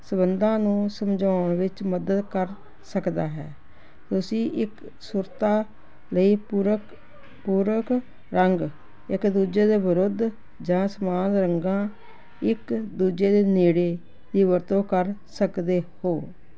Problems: constant background noise